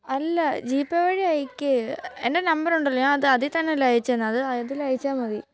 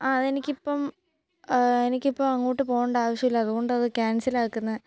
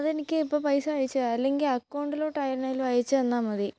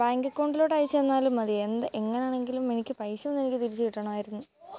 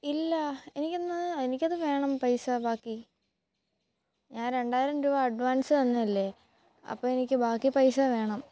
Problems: background sounds at intervals, low volume